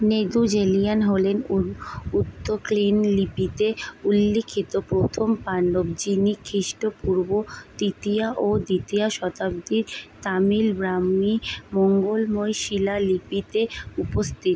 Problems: background sounds at intervals